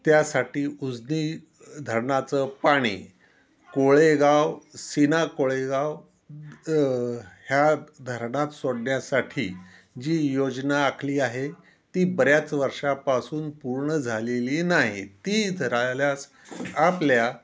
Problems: constant background noise